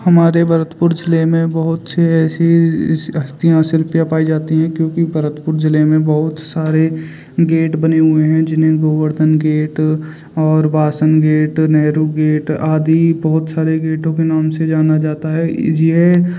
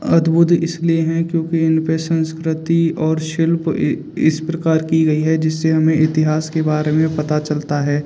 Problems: none marked